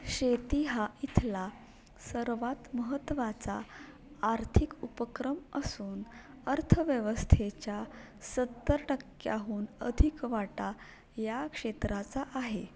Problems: background conversations at intervals